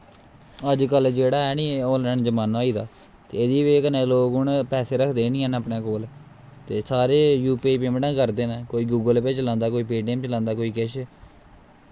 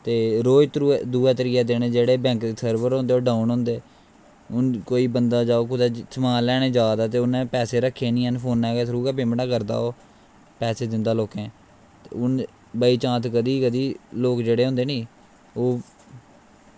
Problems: constant background noise